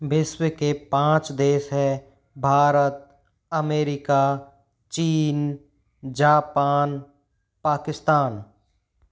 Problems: none marked